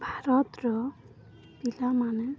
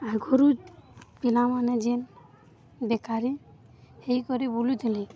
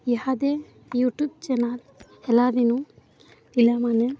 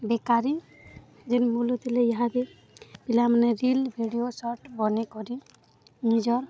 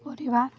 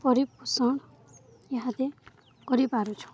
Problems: constant background noise, continuous background conversations